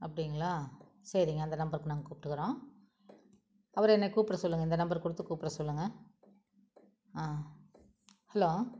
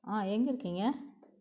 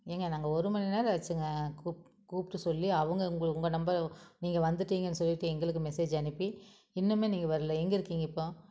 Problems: none marked